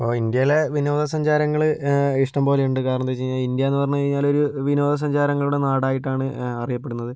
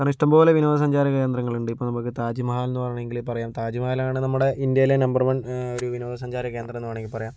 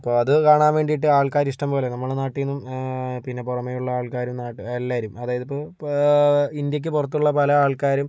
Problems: none marked